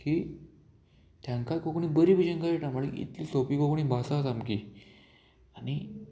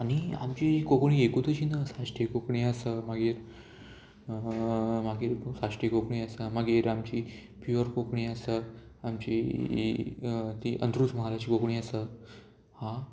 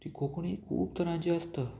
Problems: constant background noise